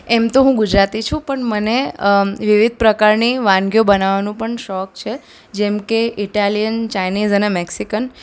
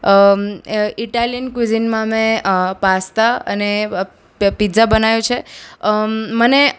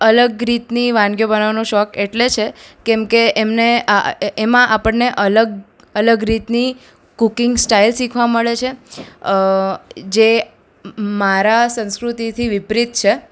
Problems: none marked